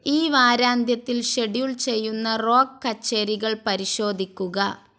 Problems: none marked